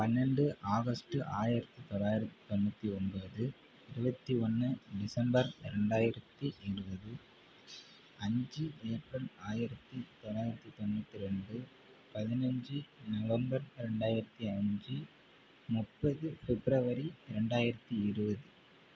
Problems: constant background noise, low volume